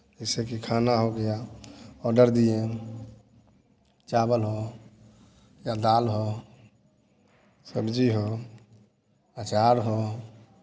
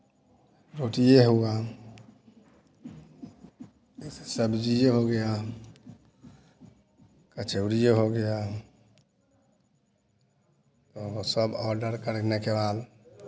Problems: background sounds at intervals